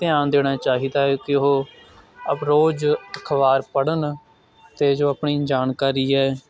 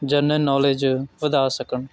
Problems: constant background noise